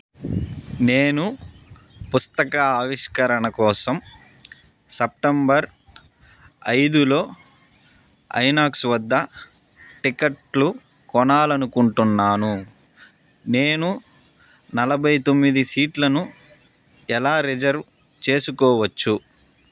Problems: background sounds at intervals